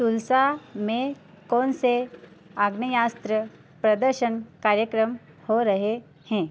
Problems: constant background noise